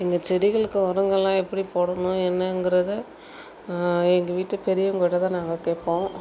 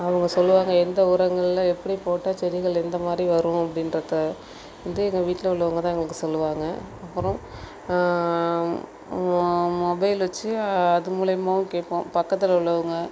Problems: constant background noise